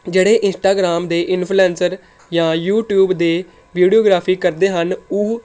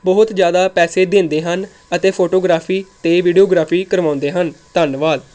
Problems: none marked